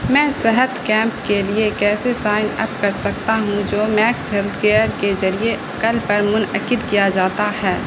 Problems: constant background noise